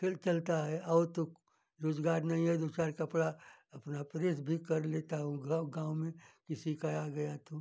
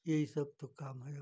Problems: none marked